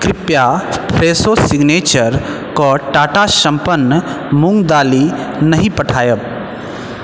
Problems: constant background noise